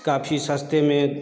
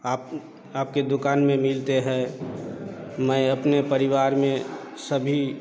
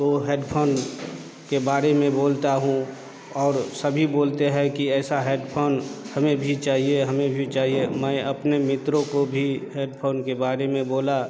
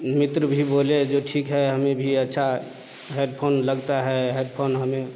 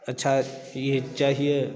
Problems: constant background noise